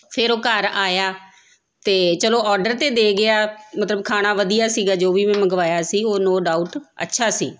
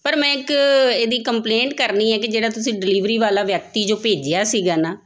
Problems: none marked